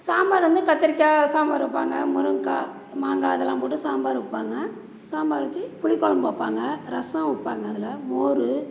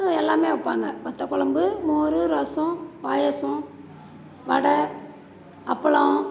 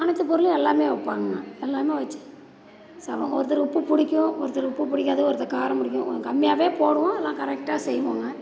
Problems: none marked